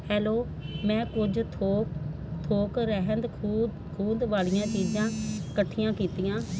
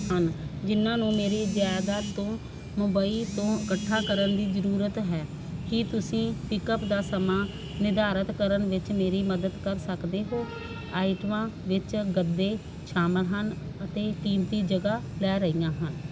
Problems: constant background noise